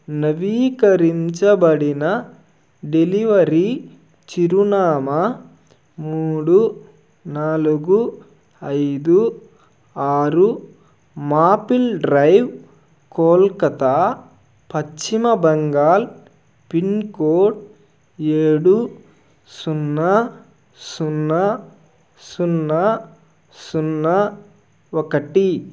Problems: none marked